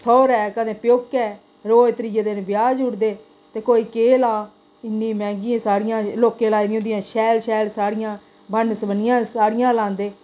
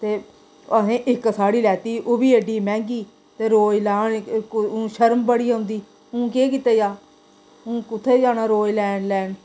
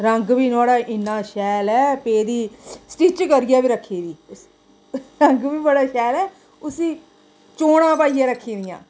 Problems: constant background noise, echo